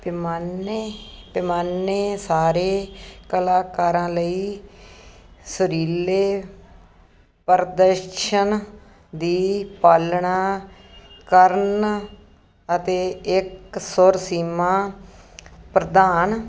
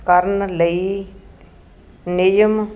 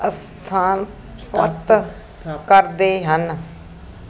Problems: background conversations at intervals